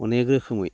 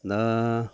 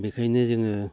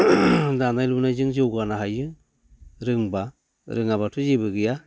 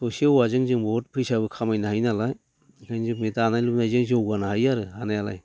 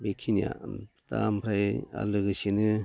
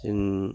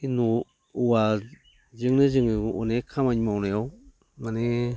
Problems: none marked